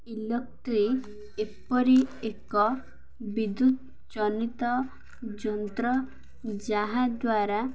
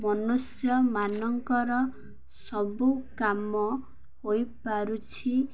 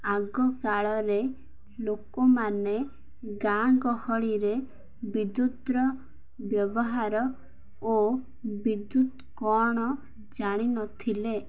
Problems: none marked